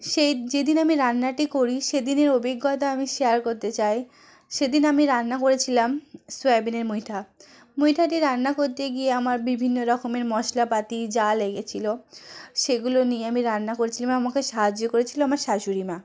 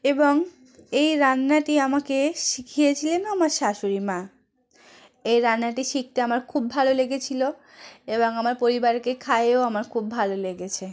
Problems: background conversations at intervals